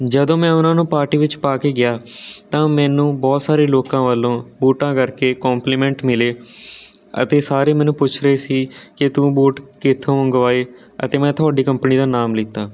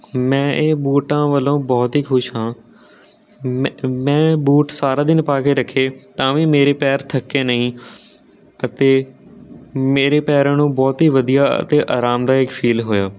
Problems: constant background noise